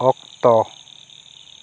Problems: constant background noise